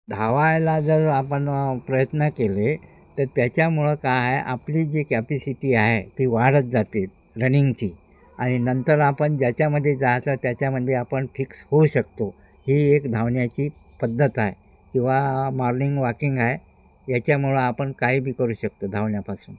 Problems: constant background noise